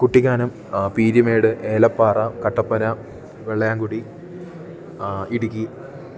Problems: low volume